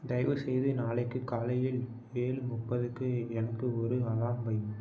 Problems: none marked